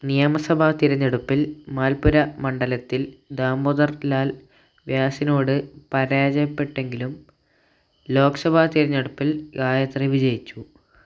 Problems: low volume